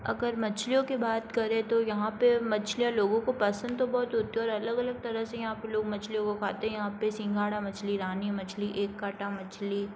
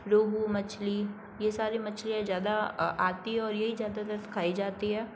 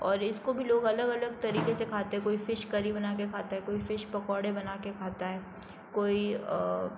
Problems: constant background noise